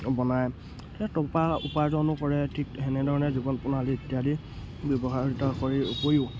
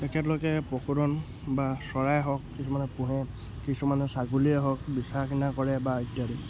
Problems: constant background noise